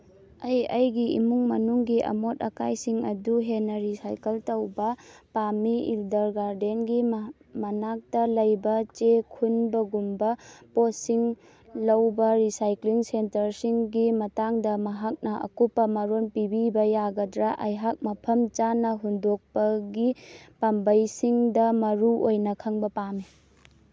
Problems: none marked